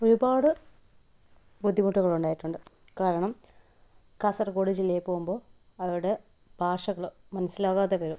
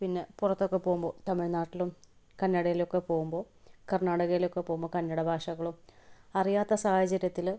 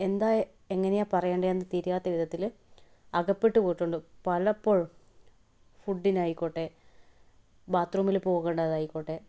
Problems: none marked